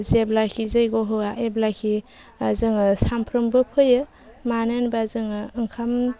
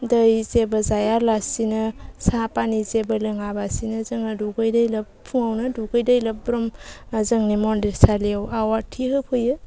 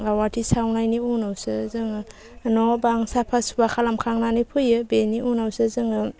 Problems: constant background noise